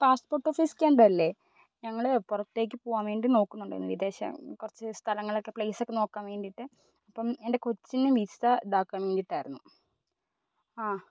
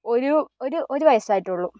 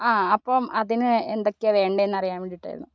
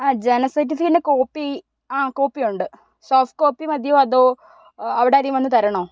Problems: none marked